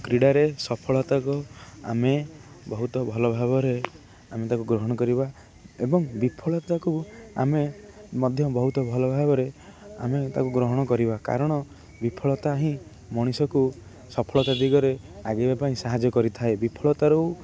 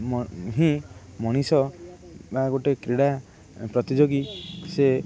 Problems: constant background noise